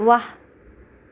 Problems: none marked